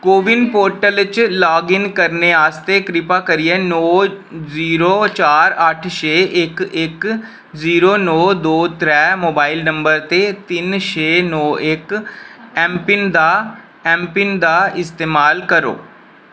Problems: none marked